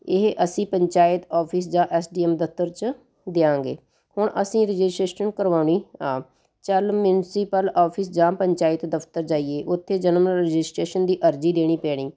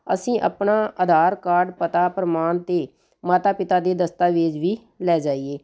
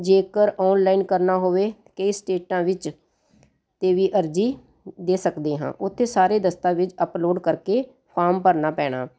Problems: none marked